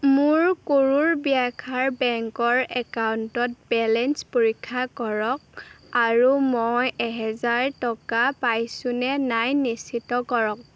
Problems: none marked